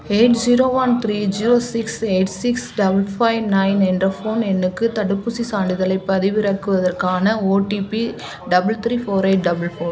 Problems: none marked